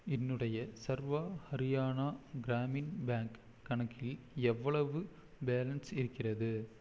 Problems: none marked